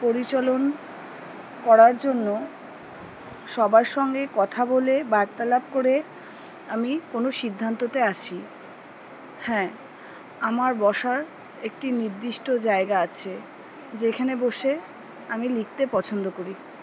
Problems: background conversations at intervals